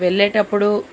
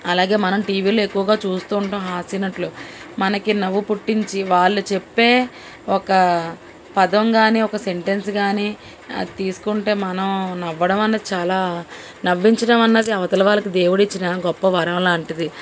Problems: none marked